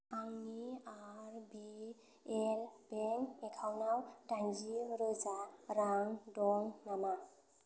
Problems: constant background noise